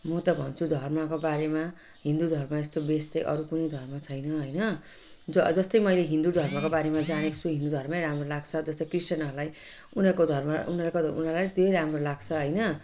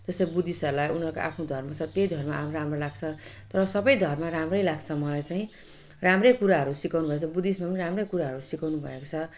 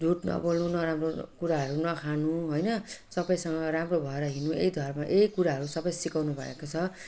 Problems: none marked